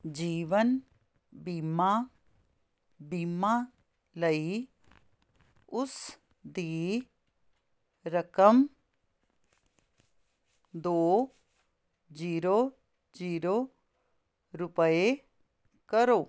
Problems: constant background noise